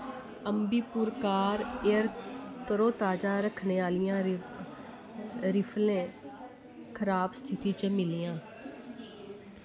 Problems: constant background noise